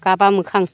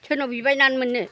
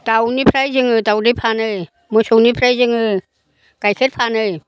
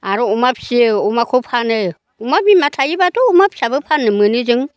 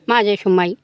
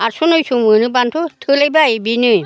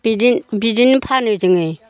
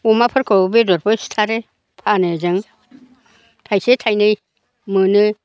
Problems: low volume